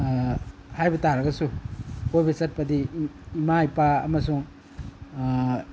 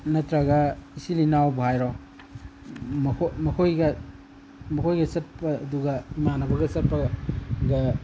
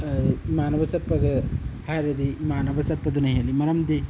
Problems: none marked